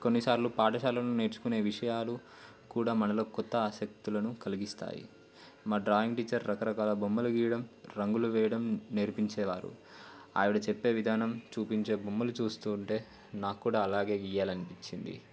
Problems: constant background noise